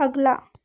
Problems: background sounds at intervals